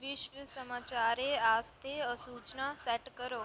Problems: low volume